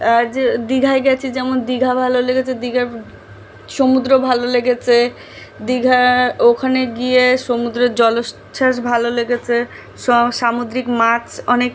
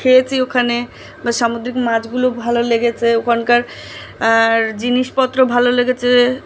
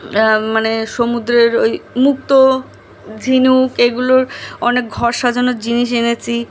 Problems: background sounds at intervals